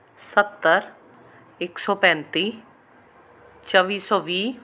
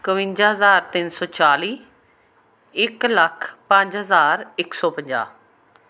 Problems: constant background noise